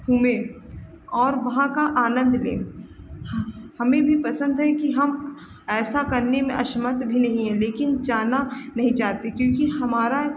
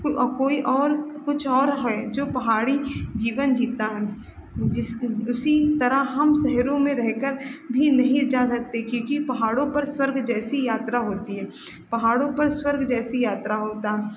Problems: constant background noise